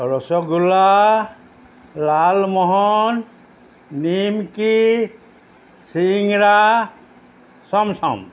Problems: constant background noise